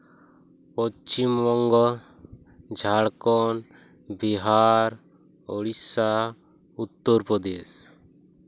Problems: constant background noise